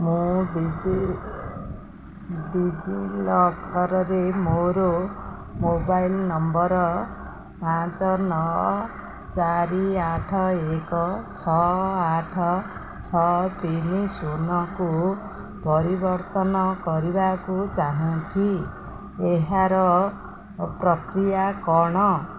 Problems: constant background noise